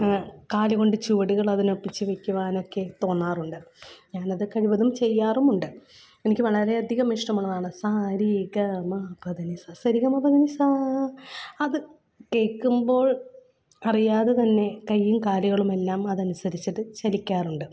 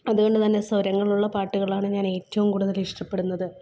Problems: none marked